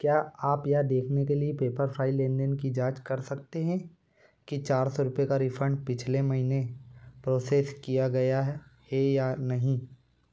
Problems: constant background noise